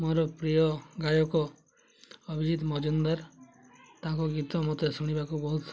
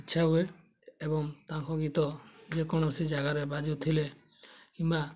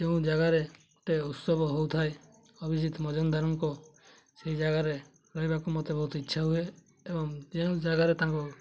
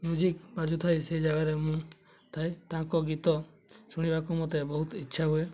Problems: background sounds at intervals, background conversations at intervals